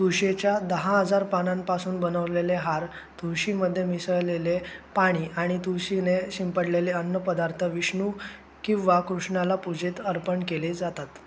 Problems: constant background noise